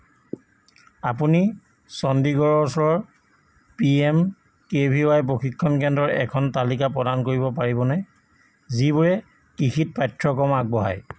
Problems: constant background noise